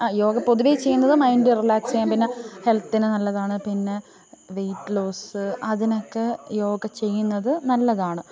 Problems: continuous background conversations, low volume